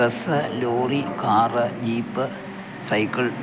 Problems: constant background noise